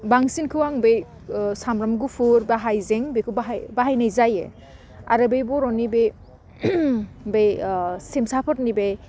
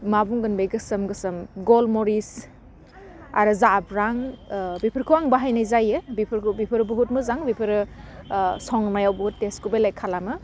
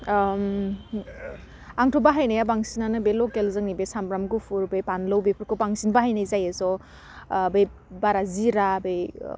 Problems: none marked